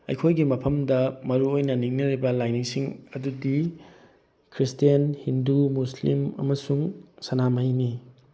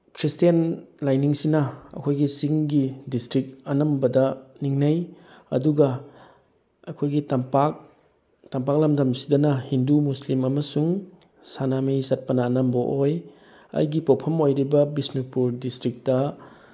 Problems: background sounds at intervals